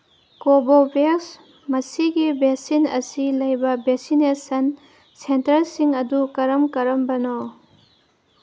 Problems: constant background noise